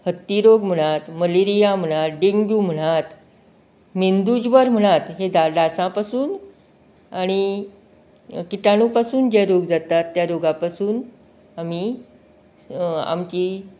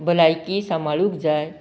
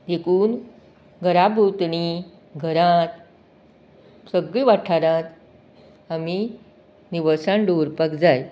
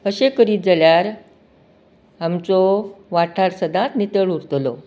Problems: background conversations at intervals